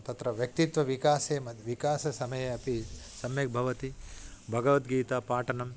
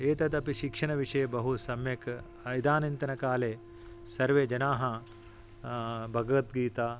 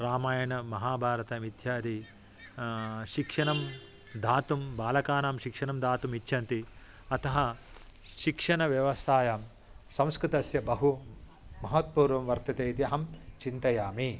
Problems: background sounds at intervals